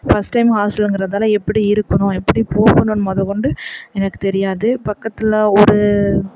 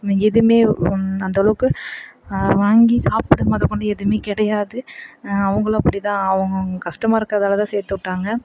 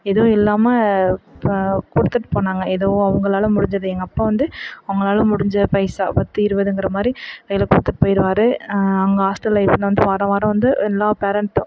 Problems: background sounds at intervals, background conversations at intervals